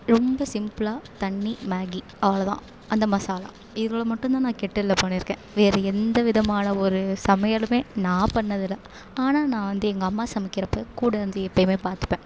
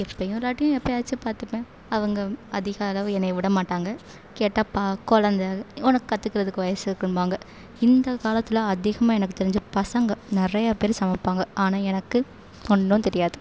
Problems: none marked